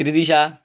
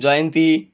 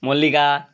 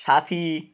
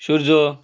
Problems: constant background noise